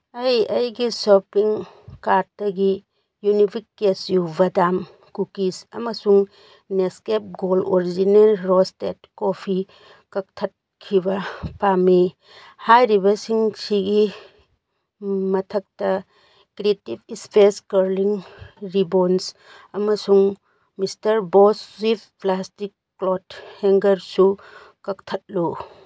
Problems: background sounds at intervals